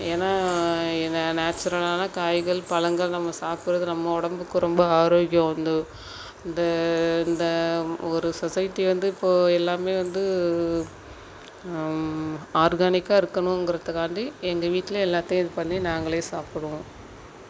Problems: constant background noise